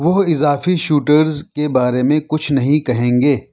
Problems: none marked